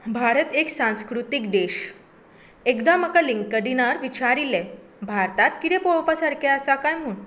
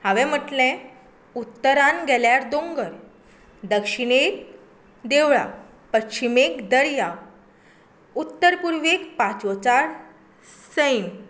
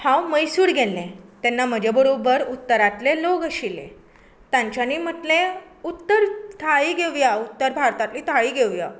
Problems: background sounds at intervals